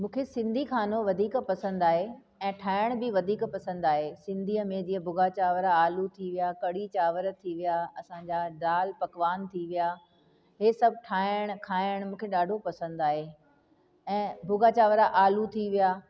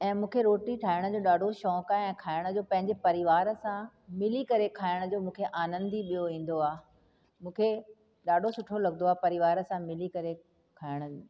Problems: constant background noise, echo